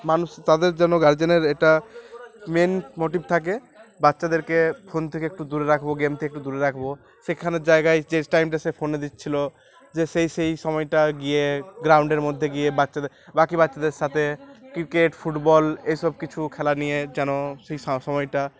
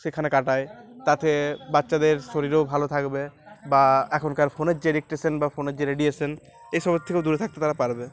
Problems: constant background noise, continuous background conversations